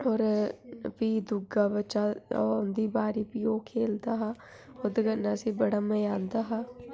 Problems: background sounds at intervals